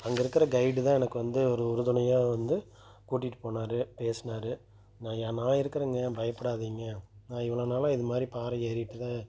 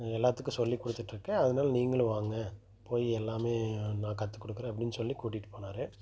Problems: none marked